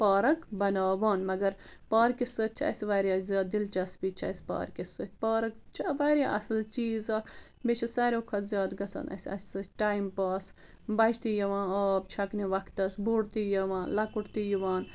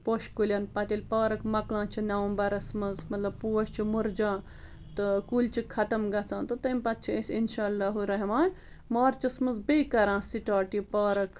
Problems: none marked